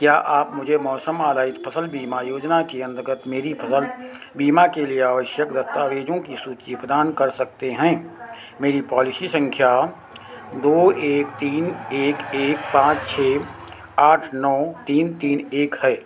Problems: constant background noise